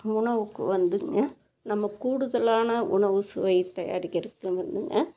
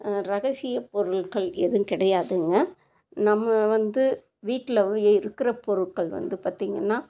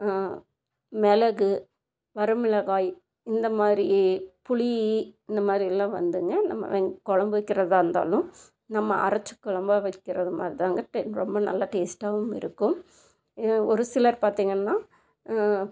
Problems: constant background noise